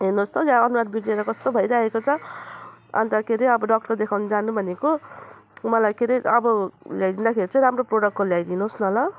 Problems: none marked